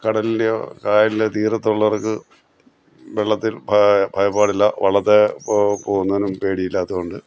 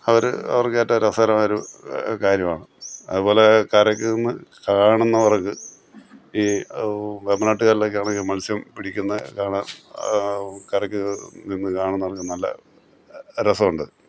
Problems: background sounds at intervals